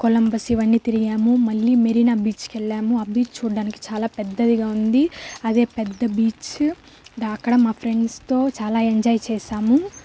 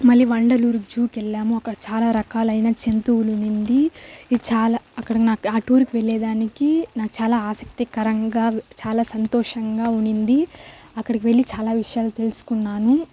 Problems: constant background noise